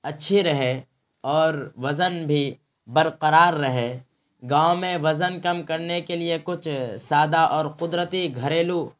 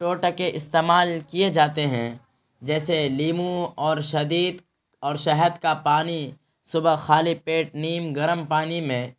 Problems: constant background noise